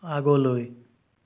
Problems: none marked